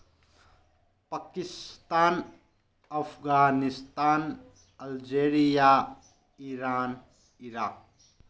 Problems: none marked